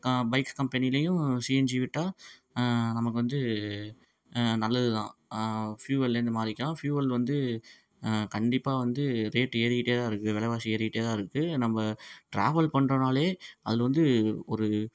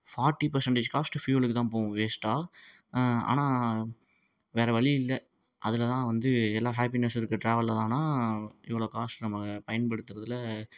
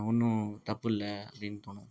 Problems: none marked